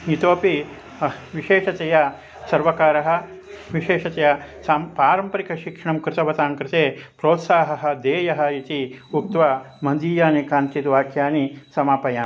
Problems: constant background noise, continuous background conversations